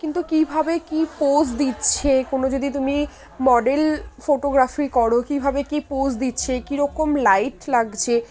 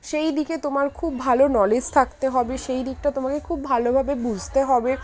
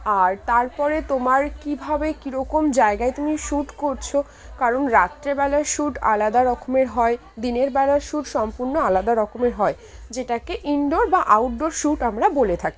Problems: constant background noise, continuous background conversations